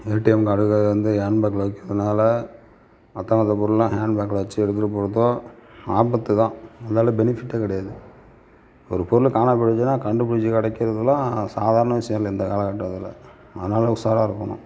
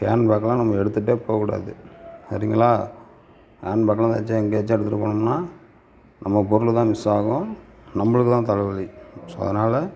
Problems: background sounds at intervals